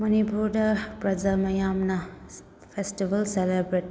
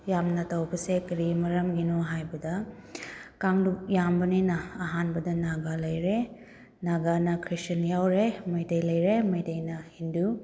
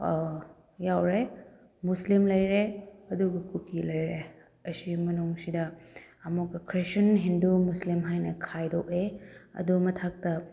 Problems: background sounds at intervals